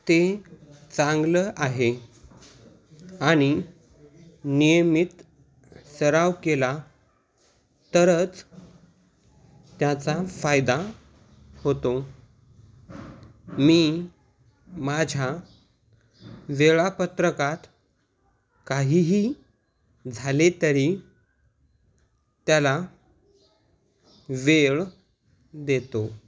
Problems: background sounds at intervals, background conversations at intervals